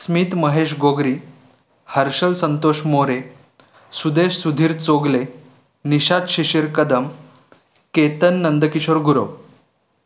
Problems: background sounds at intervals